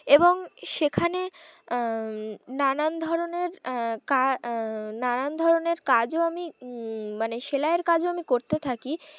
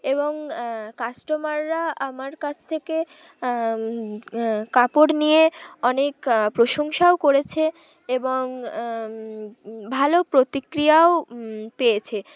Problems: background sounds at intervals, background conversations at intervals